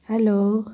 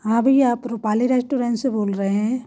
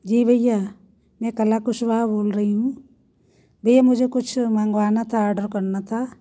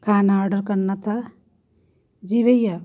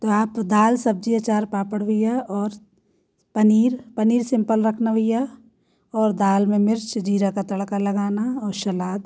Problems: none marked